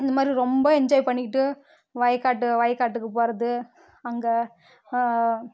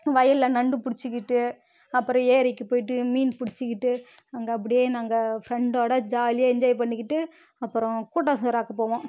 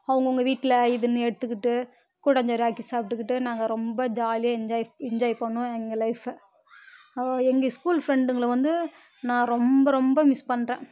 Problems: none marked